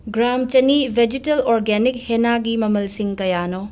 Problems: background sounds at intervals